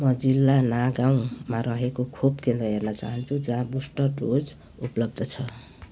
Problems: background sounds at intervals